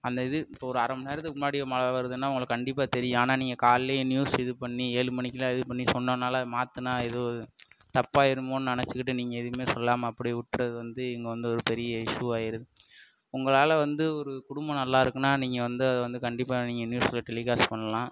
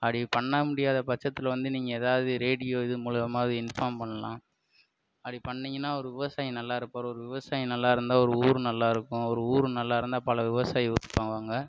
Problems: constant background noise